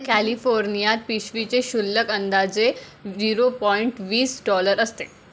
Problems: background sounds at intervals, background conversations at intervals